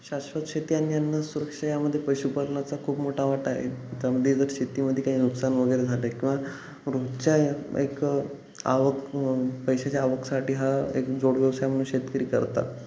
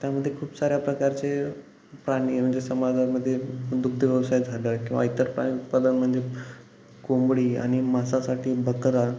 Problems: none marked